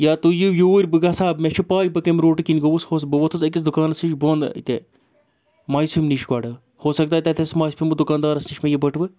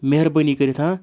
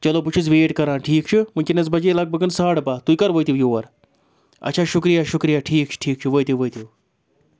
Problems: none marked